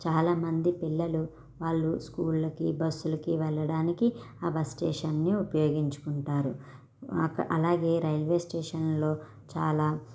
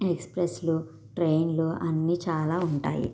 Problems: none marked